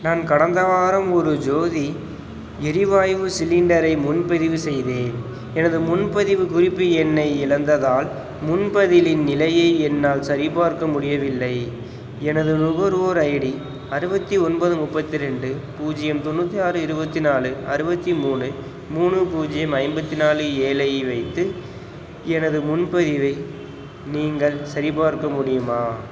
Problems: constant background noise